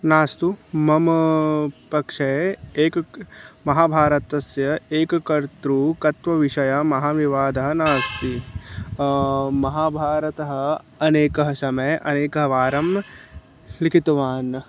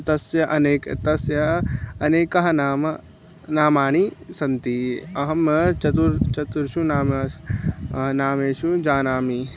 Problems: none marked